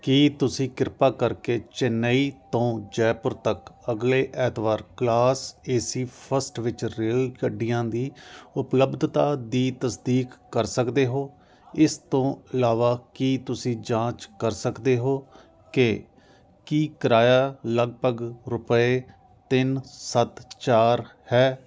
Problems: constant background noise